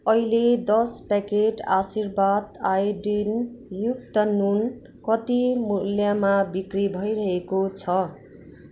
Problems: constant background noise